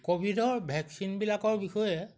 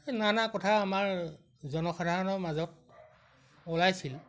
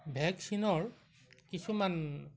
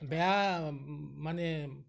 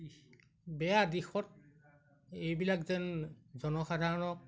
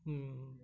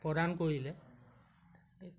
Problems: background sounds at intervals